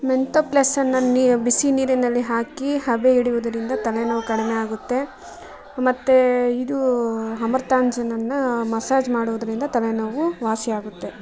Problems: background sounds at intervals